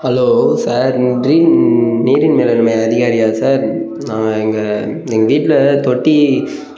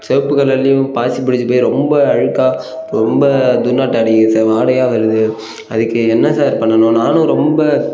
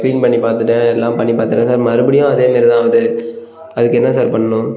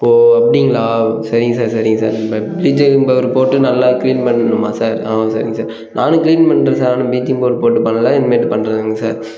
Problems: background sounds at intervals